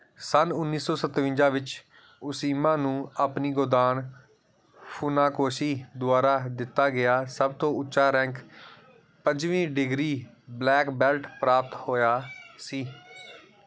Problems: background sounds at intervals